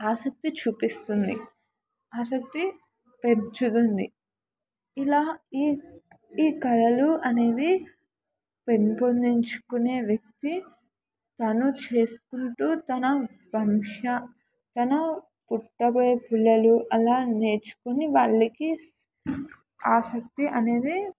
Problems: none marked